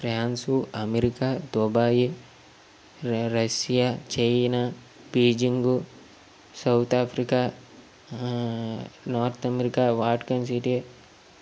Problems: constant background noise